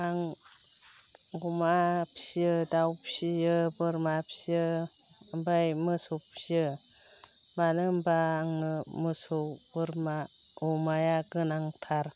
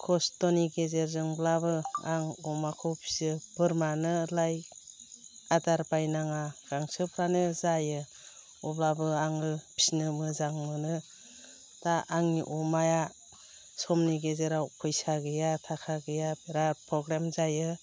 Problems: constant background noise